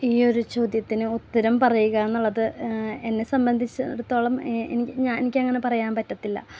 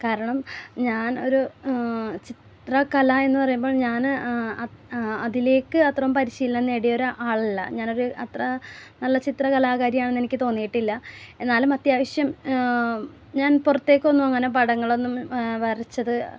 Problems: none marked